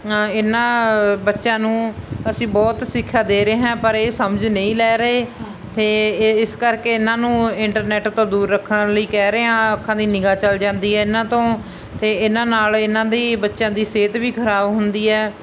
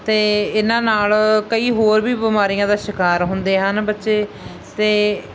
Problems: constant background noise